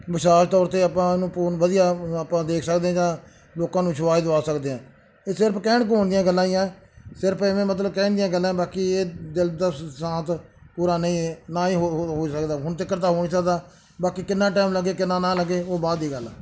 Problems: background sounds at intervals